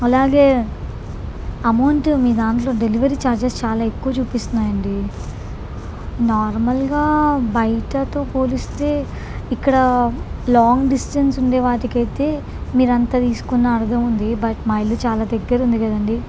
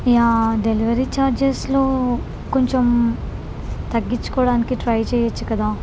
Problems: constant background noise